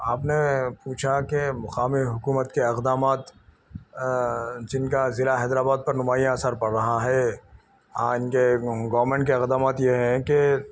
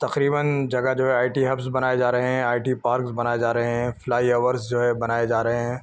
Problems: none marked